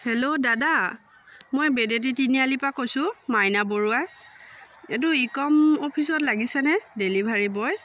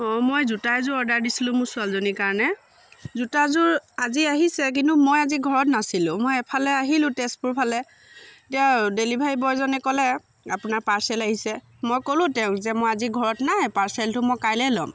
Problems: constant background noise, continuous background conversations